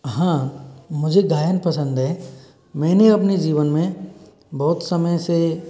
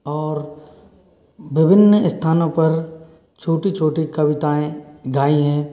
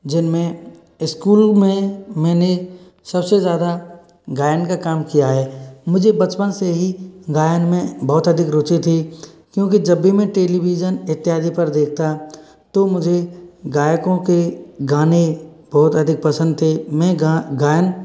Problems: background sounds at intervals